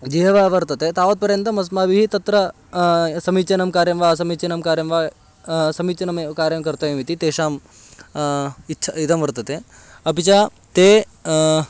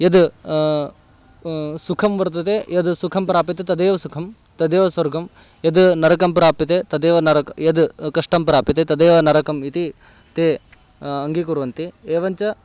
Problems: constant background noise